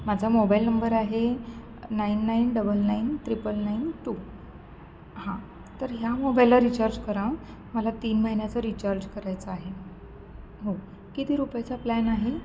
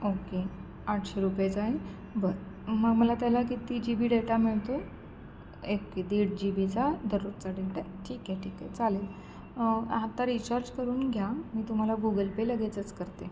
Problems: constant background noise, background conversations at intervals